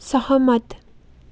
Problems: none marked